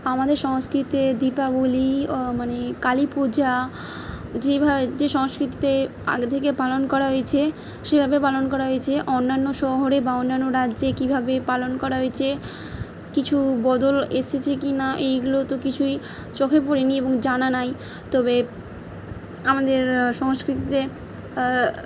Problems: background sounds at intervals